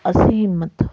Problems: background sounds at intervals